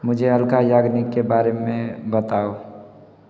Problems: background sounds at intervals